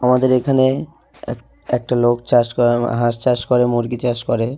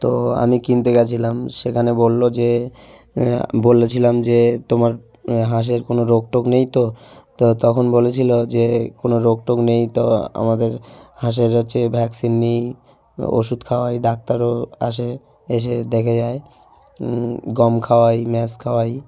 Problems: background sounds at intervals, background conversations at intervals